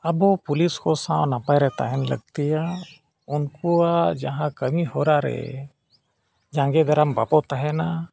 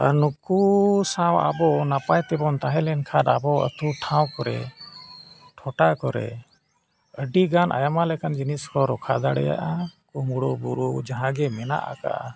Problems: none marked